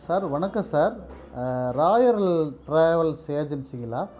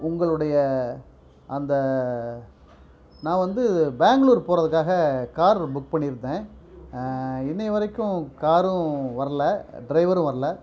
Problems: background sounds at intervals